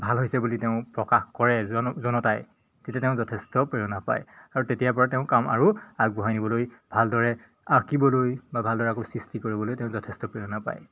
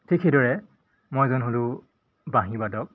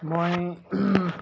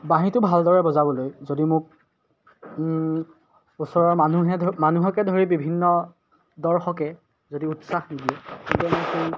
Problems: none marked